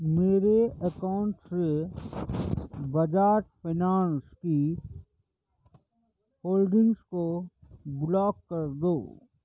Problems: low volume